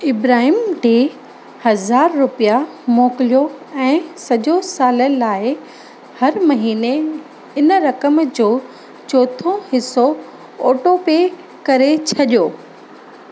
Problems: constant background noise, echo